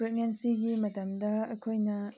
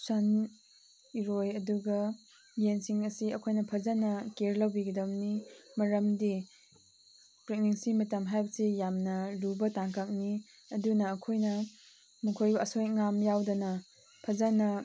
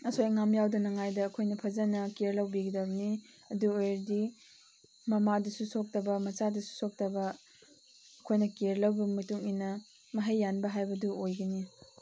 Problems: none marked